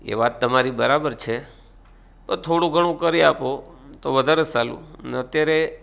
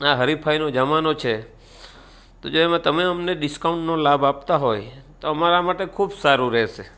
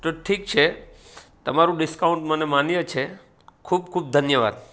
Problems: none marked